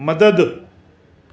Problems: constant background noise